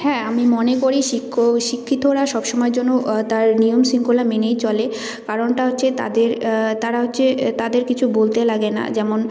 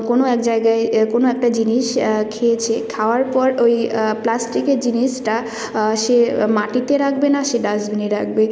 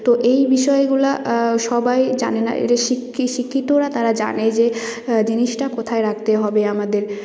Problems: constant background noise